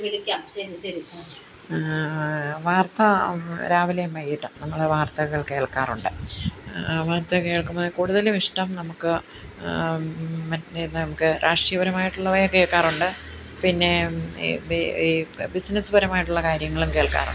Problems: background conversations at intervals